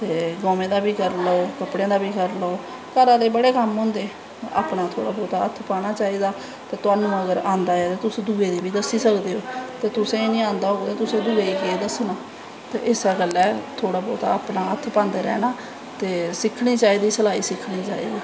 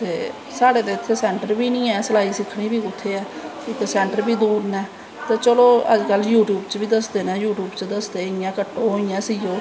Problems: constant background noise